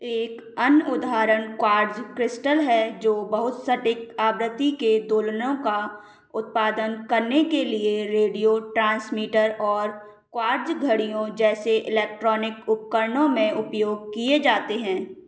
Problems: none marked